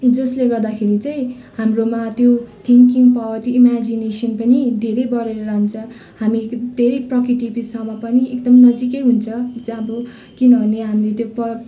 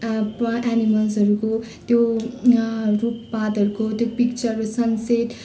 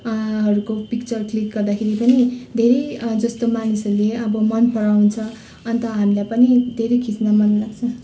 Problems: continuous background conversations